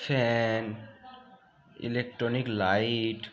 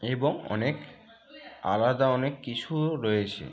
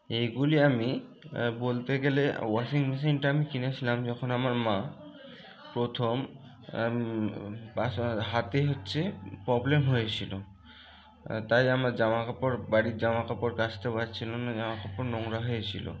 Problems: none marked